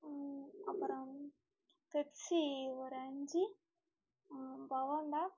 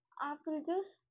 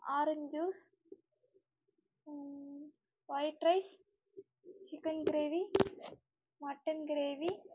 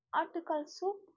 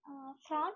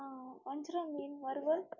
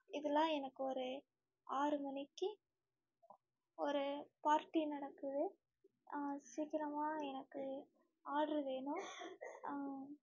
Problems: low volume